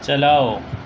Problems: constant background noise